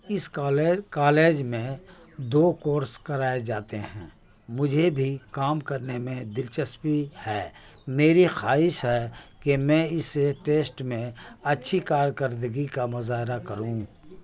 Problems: constant background noise